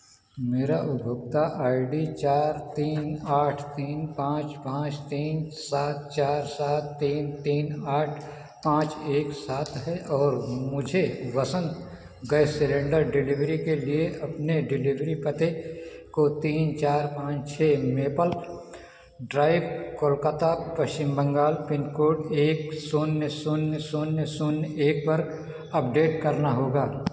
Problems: background sounds at intervals